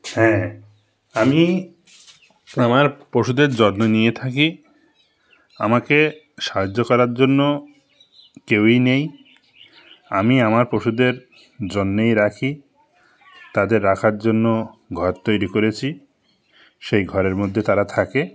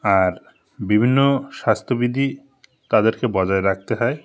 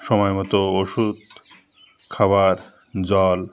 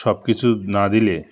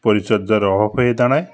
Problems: constant background noise, continuous background conversations